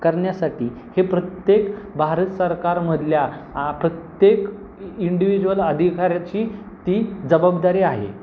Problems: constant background noise